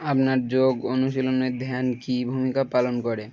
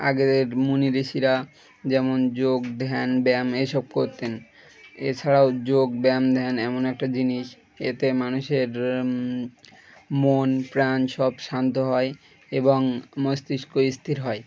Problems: background sounds at intervals